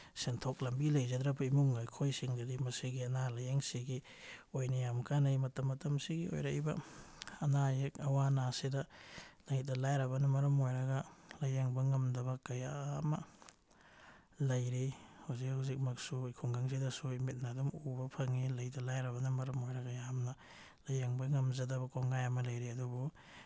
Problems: none marked